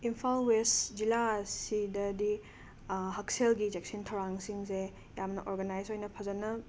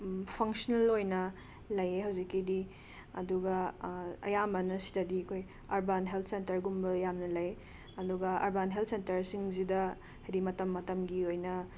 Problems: background sounds at intervals